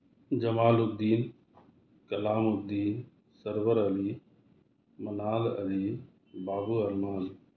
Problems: none marked